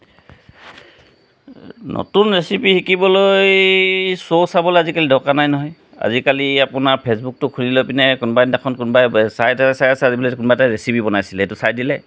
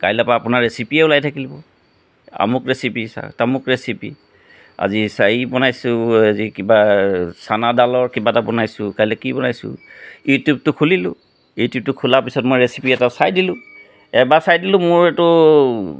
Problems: none marked